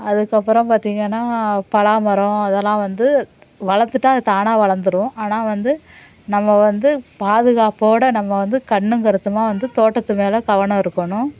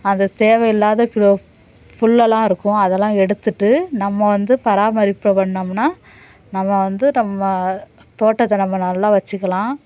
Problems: none marked